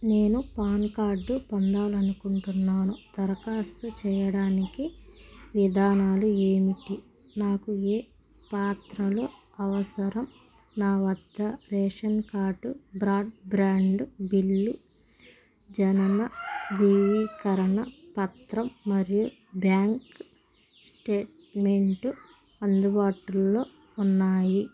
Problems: constant background noise